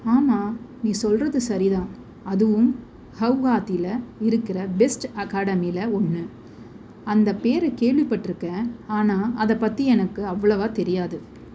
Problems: constant background noise